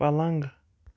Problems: background sounds at intervals